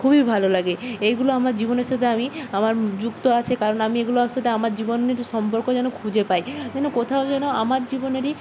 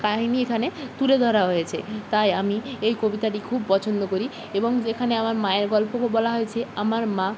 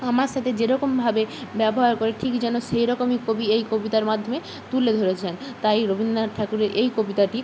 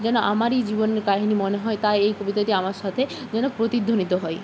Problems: constant background noise